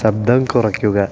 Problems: constant background noise